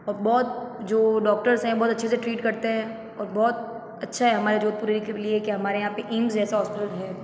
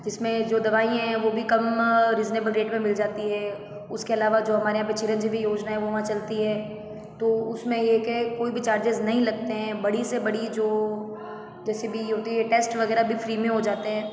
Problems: background sounds at intervals, background conversations at intervals